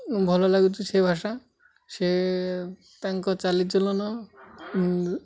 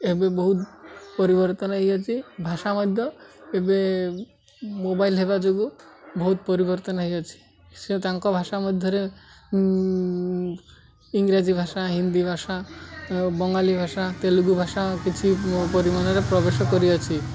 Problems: constant background noise, continuous background conversations